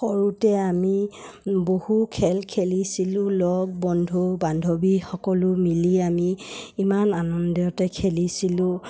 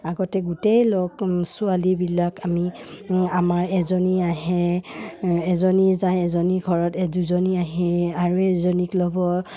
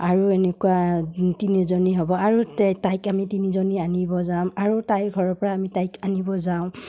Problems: none marked